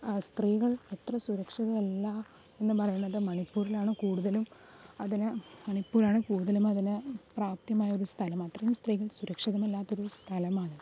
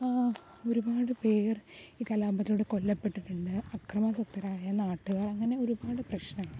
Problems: background sounds at intervals, low volume